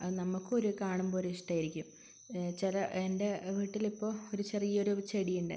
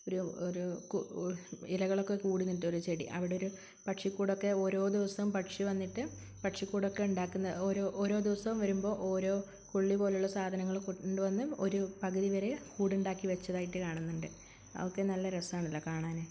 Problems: constant background noise